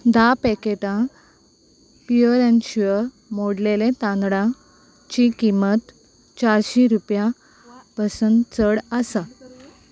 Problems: constant background noise